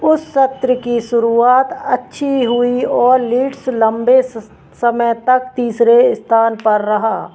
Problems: none marked